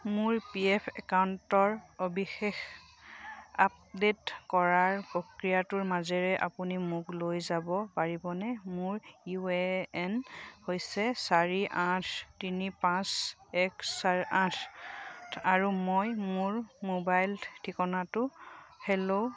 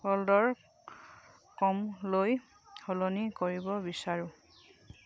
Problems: none marked